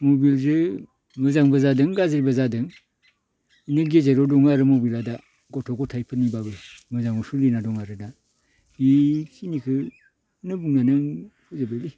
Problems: none marked